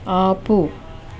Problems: constant background noise